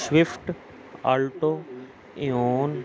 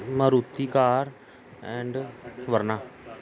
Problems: none marked